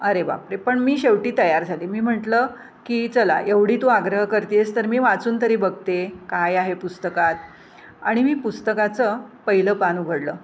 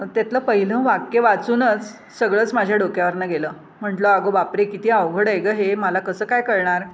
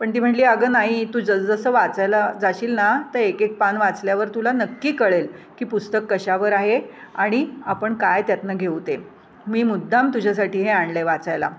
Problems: constant background noise, background conversations at intervals